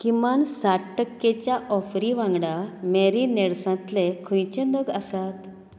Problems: constant background noise